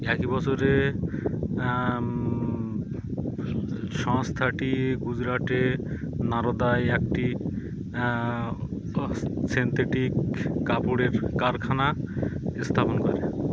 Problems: constant background noise